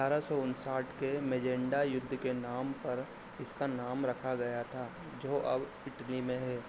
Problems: constant background noise